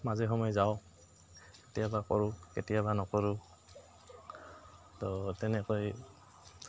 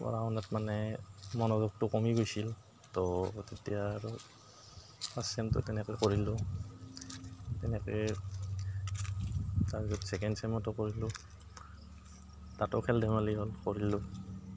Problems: background sounds at intervals, background conversations at intervals